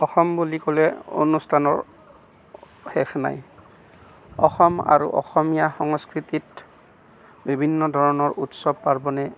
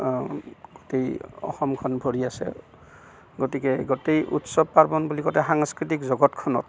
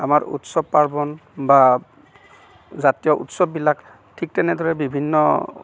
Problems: constant background noise